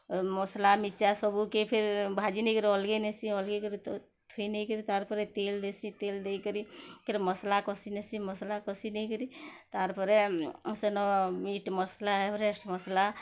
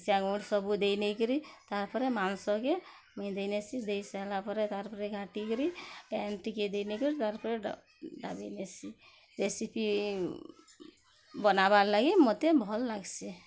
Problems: low volume